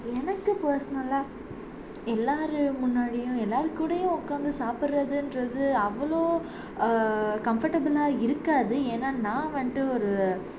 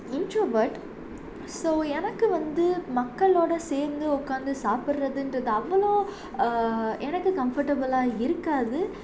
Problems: constant background noise